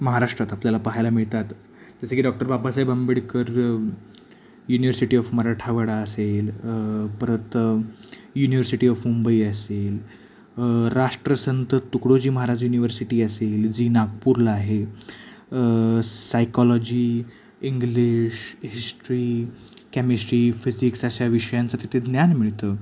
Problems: none marked